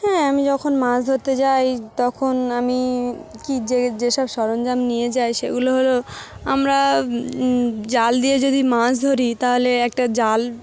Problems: constant background noise, continuous background conversations